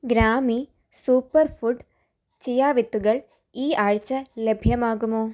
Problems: none marked